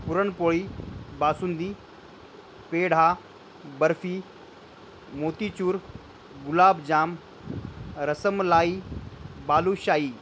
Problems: none marked